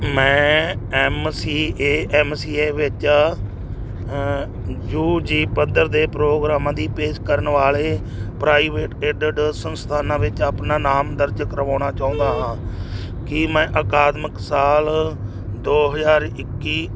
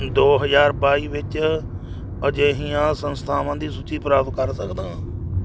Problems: constant background noise